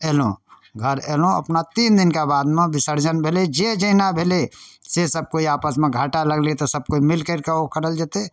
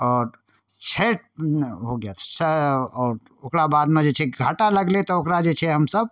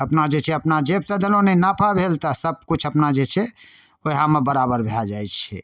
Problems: none marked